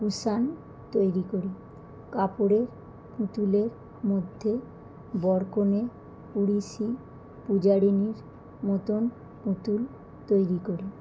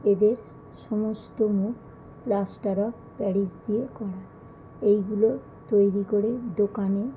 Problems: none marked